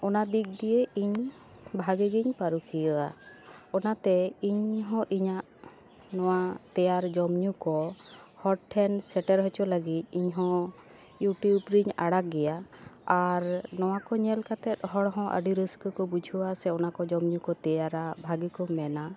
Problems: background sounds at intervals